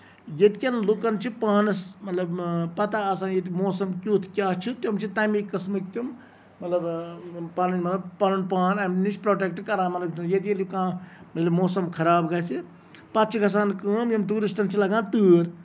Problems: none marked